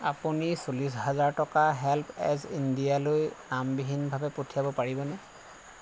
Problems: constant background noise